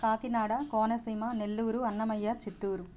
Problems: constant background noise